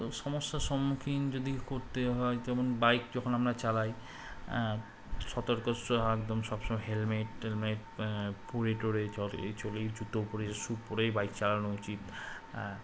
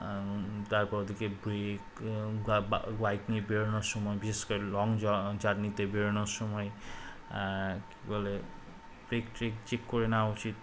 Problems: constant background noise